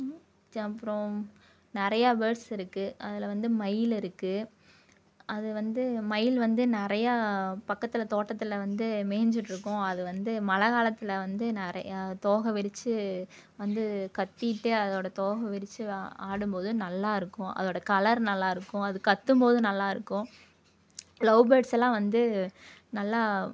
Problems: none marked